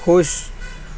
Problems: constant background noise